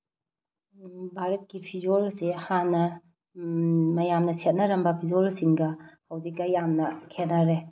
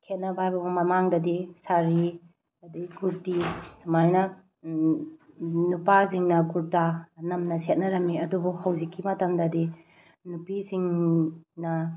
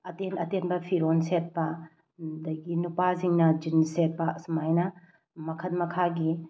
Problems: background sounds at intervals